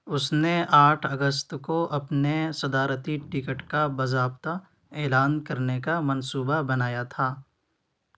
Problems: constant background noise